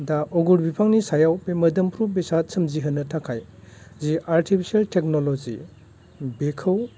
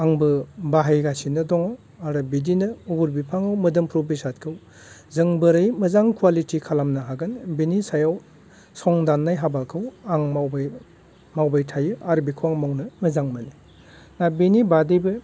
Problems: none marked